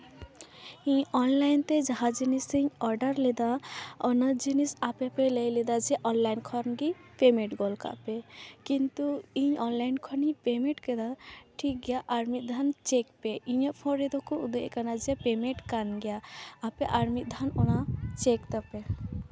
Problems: none marked